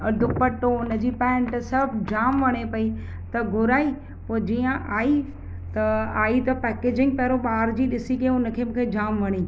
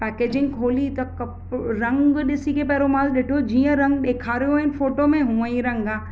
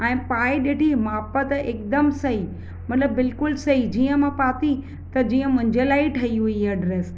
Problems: constant background noise